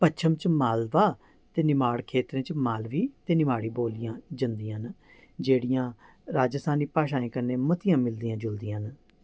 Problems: none marked